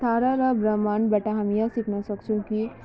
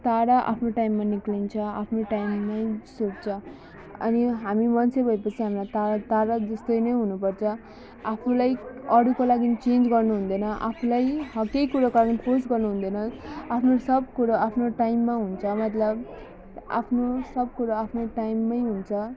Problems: background sounds at intervals